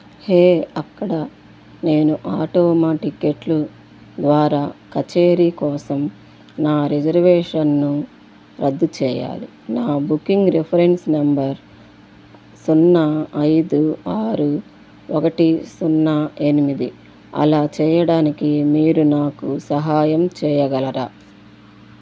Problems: constant background noise